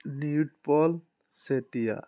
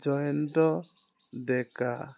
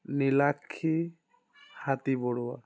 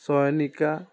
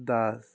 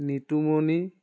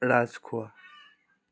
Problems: constant background noise, background conversations at intervals